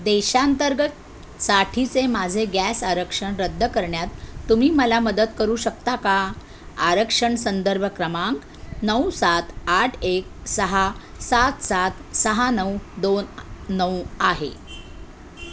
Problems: constant background noise